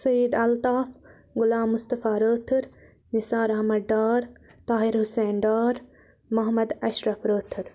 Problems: background sounds at intervals